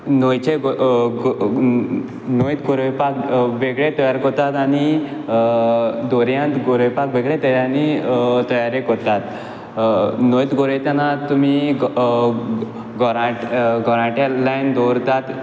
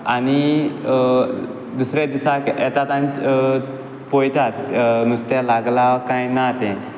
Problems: background sounds at intervals